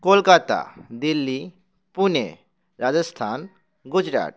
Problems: none marked